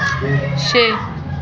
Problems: constant background noise, background conversations at intervals